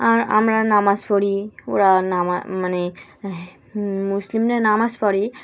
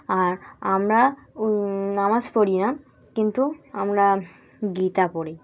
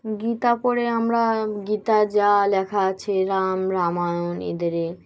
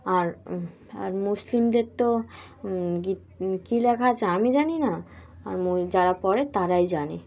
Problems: constant background noise, continuous background conversations